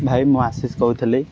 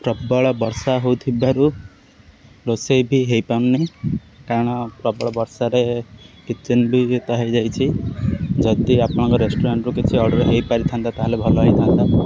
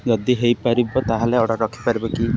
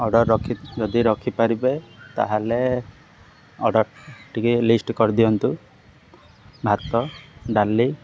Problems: constant background noise